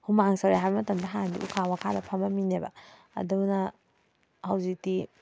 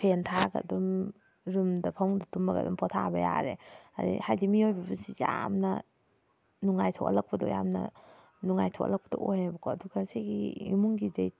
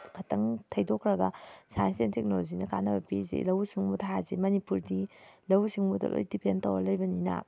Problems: background sounds at intervals